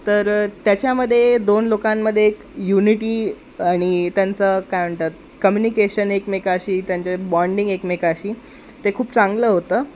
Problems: constant background noise